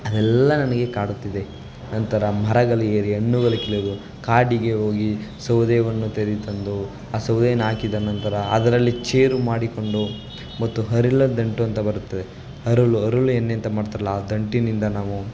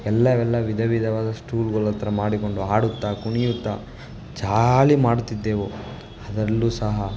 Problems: none marked